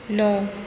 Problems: none marked